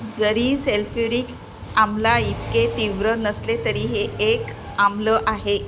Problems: constant background noise, continuous background conversations